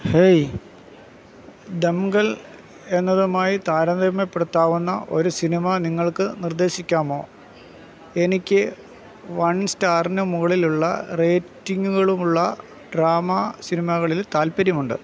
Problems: constant background noise